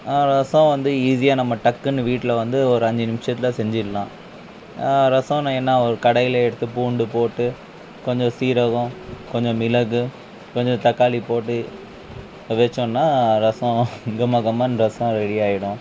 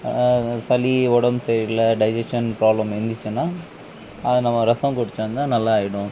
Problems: none marked